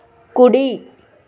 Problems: constant background noise